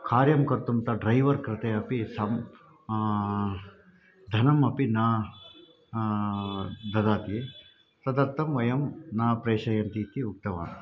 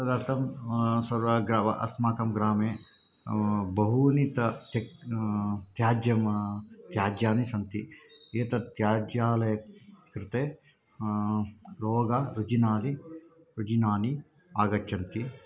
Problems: background conversations at intervals